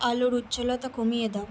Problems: constant background noise